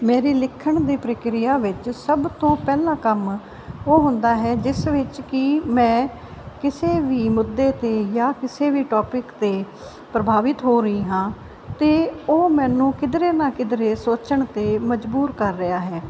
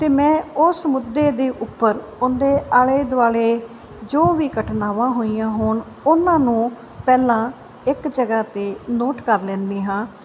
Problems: constant background noise